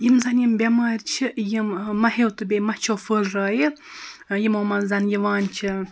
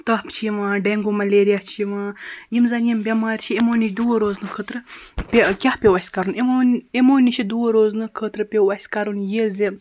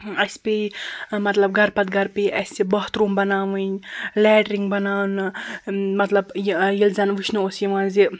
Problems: constant background noise